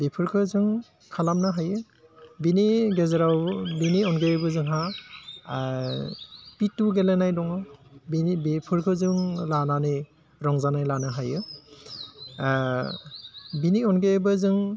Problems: constant background noise